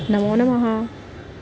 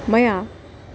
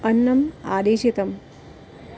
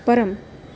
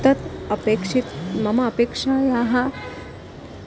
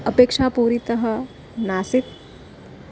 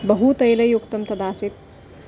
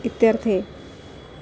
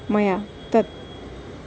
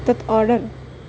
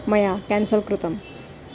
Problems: constant background noise